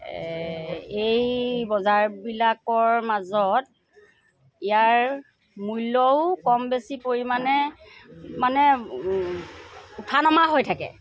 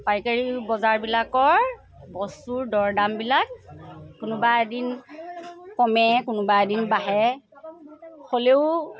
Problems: constant background noise, background conversations at intervals